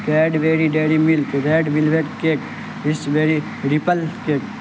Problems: constant background noise